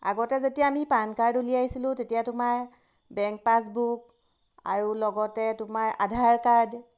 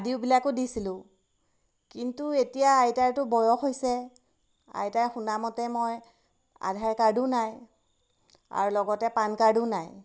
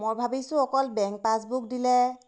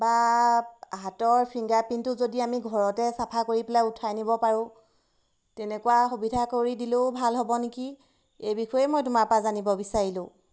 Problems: background sounds at intervals